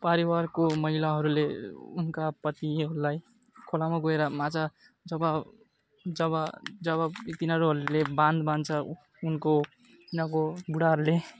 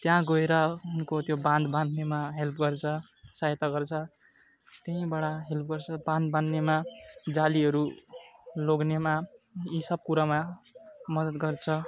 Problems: constant background noise